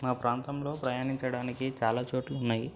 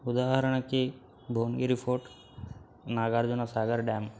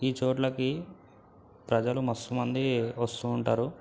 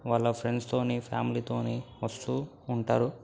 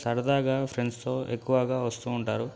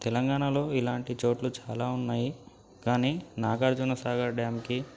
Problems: background sounds at intervals, low volume